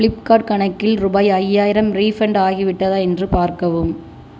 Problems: none marked